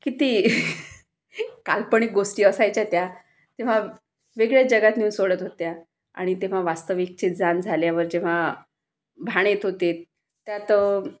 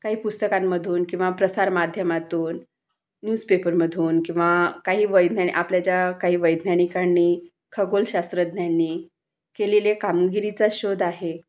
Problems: none marked